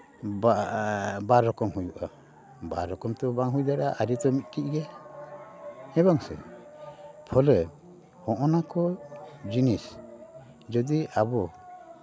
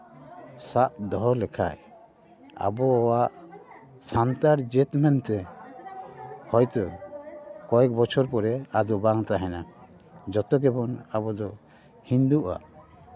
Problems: continuous background conversations